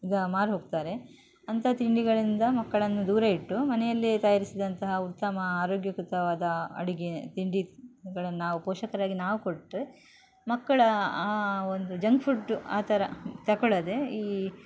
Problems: background sounds at intervals